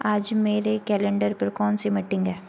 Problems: constant background noise